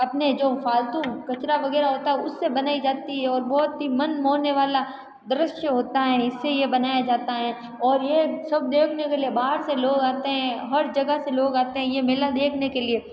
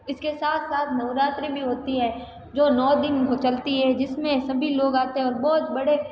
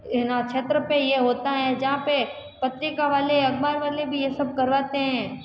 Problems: background conversations at intervals